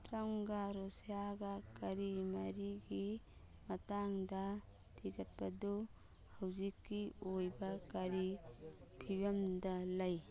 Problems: background sounds at intervals, background conversations at intervals, low volume